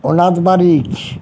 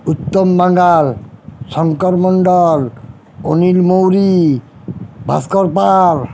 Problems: background sounds at intervals